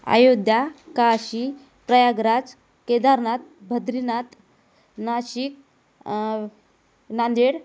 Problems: none marked